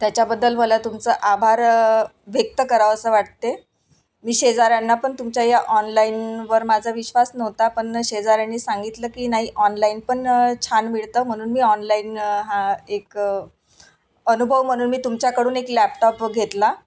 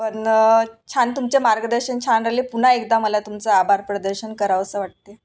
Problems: none marked